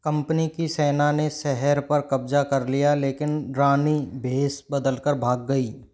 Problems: background sounds at intervals